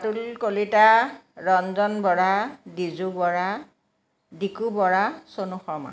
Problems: none marked